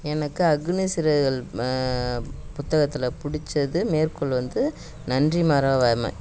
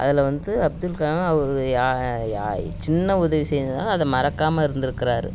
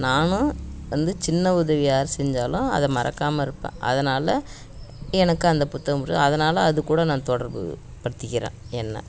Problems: none marked